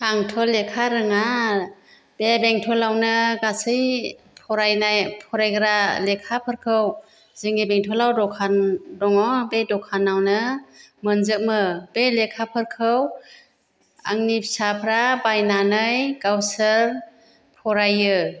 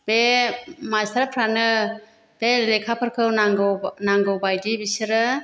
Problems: none marked